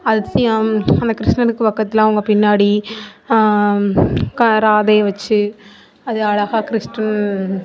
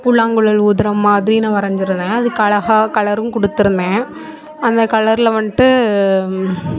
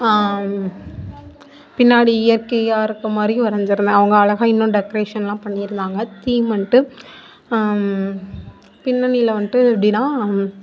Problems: continuous background conversations